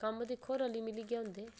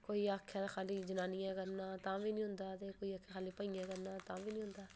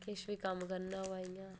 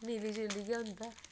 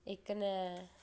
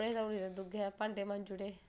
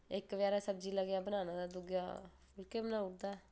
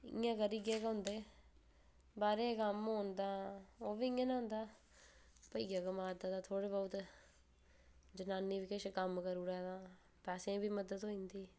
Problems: background sounds at intervals